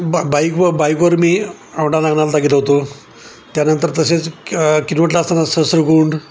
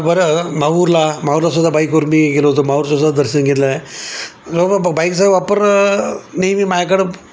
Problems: constant background noise